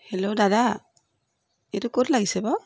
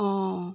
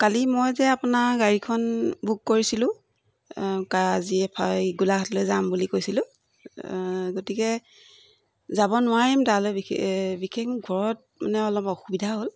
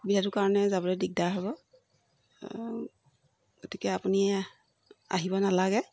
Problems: background sounds at intervals